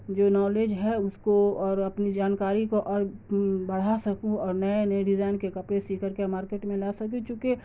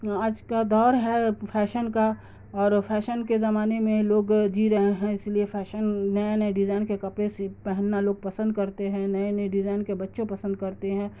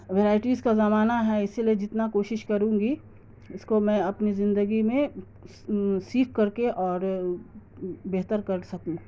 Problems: constant background noise